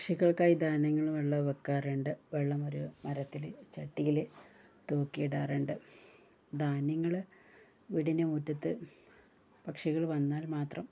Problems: none marked